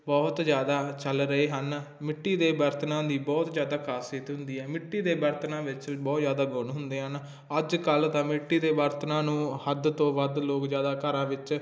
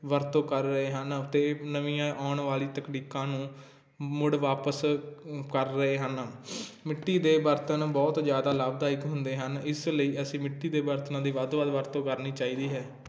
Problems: constant background noise